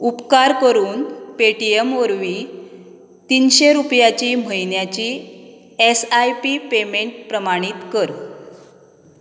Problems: background sounds at intervals